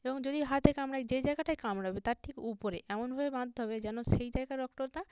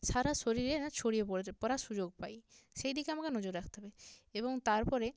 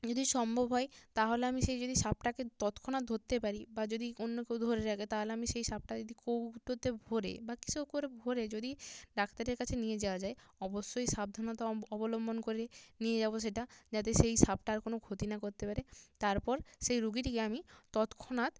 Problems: none marked